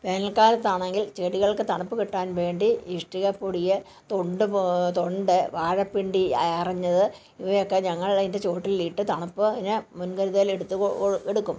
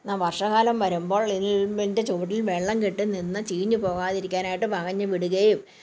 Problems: background conversations at intervals